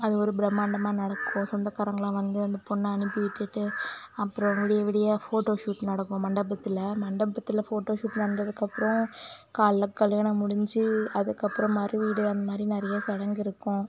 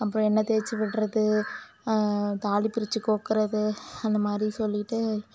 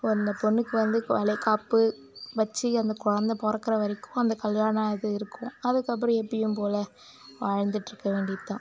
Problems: constant background noise